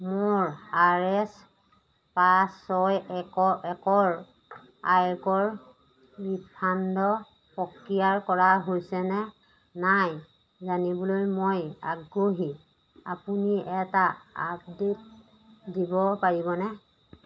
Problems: background sounds at intervals